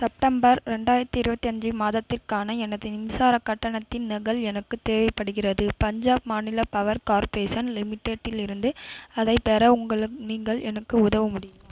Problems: background sounds at intervals